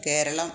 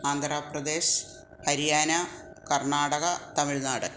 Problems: none marked